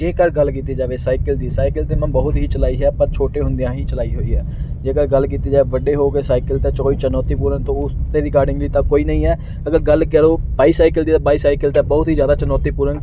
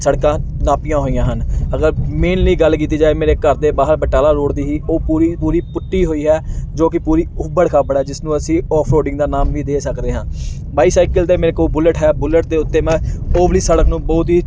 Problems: none marked